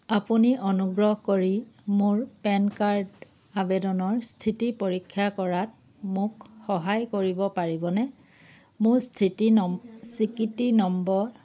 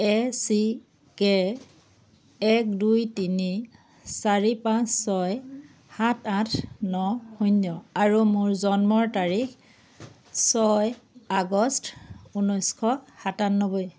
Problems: none marked